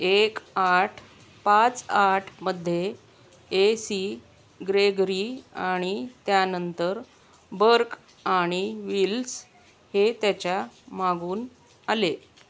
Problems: constant background noise